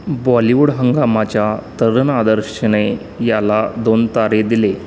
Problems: constant background noise